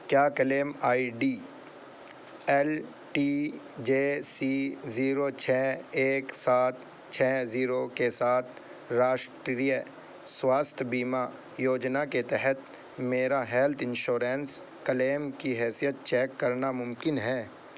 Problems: constant background noise